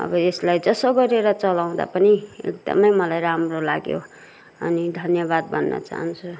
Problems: none marked